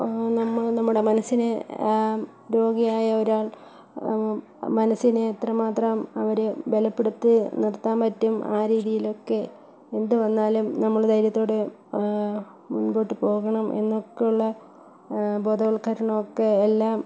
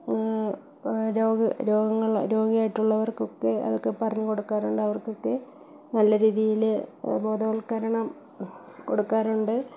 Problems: echo, low volume